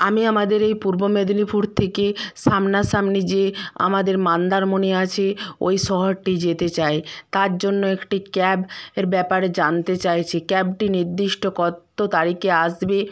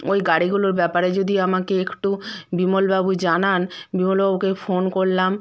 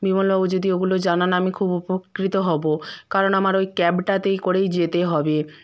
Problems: background sounds at intervals